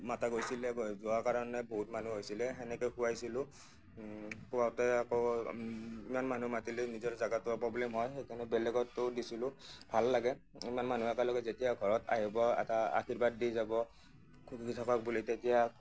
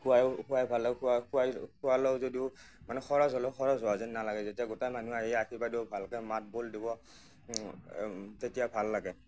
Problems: none marked